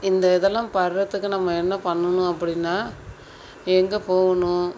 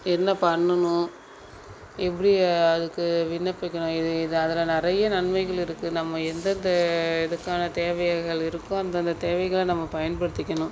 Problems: background sounds at intervals